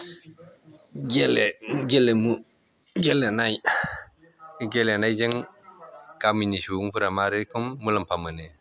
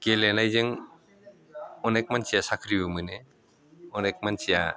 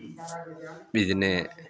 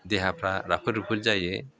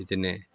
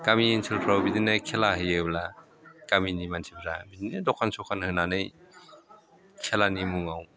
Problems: constant background noise